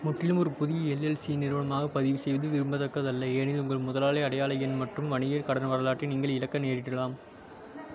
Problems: low volume